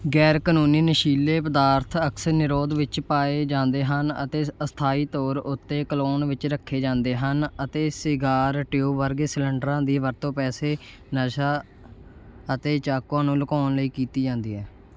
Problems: none marked